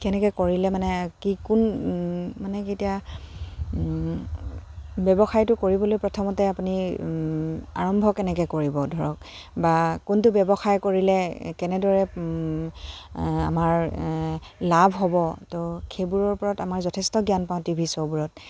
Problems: constant background noise, background conversations at intervals